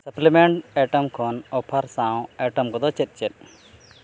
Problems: background sounds at intervals